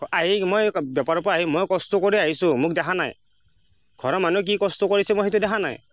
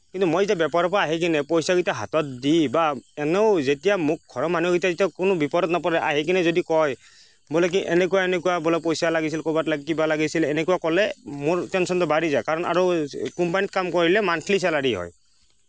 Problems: constant background noise